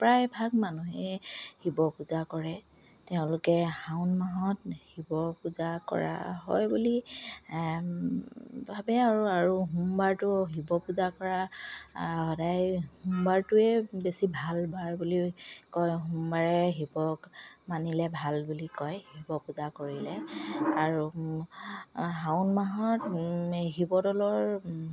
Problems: none marked